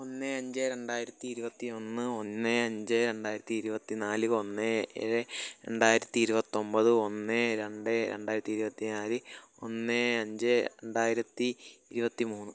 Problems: low volume